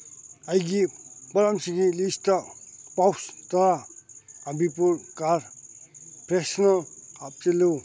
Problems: none marked